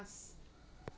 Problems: constant background noise